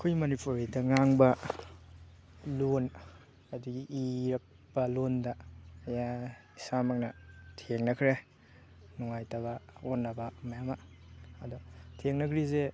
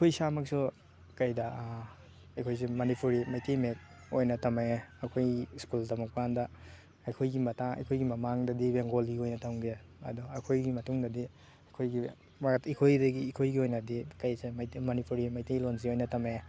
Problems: background sounds at intervals, background conversations at intervals